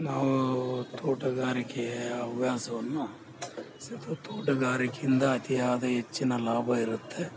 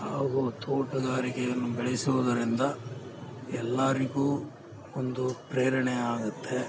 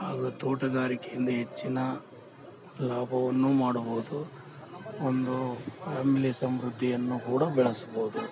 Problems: background sounds at intervals